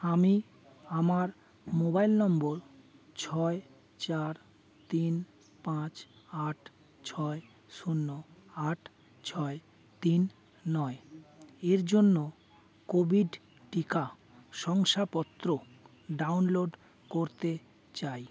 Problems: none marked